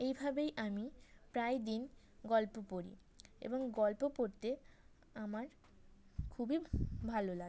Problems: background sounds at intervals